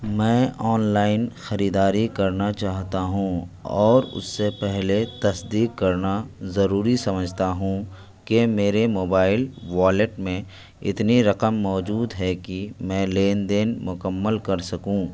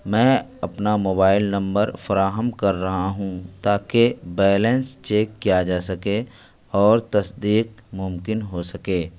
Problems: constant background noise